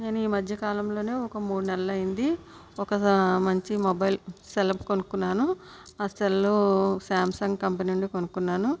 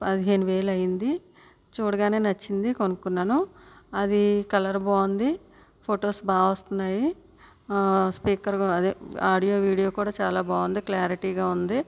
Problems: none marked